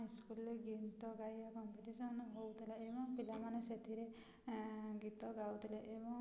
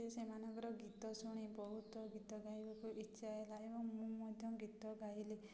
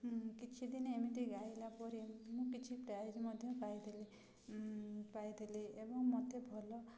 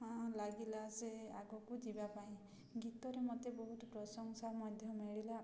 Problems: constant background noise, continuous background conversations